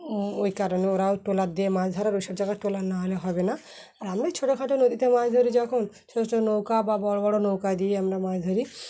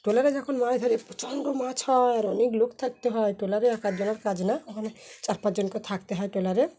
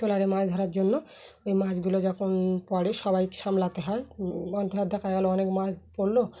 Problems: constant background noise